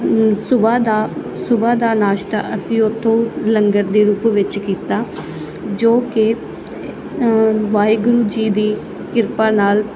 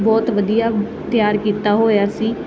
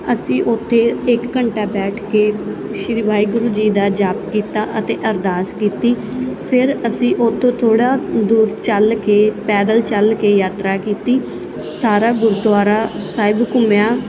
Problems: constant background noise